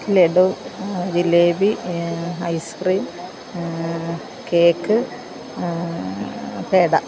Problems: background sounds at intervals